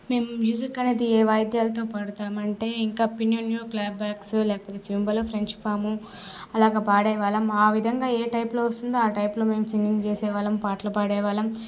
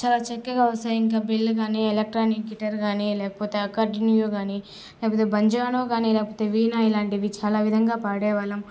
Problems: none marked